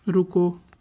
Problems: none marked